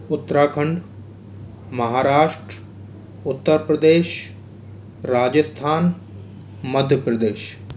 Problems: none marked